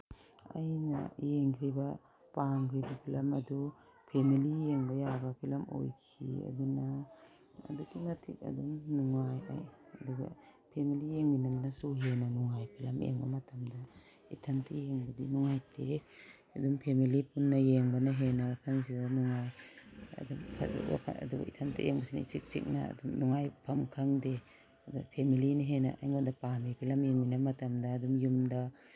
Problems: constant background noise